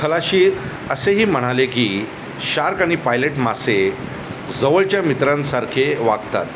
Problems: constant background noise